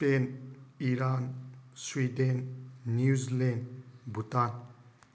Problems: constant background noise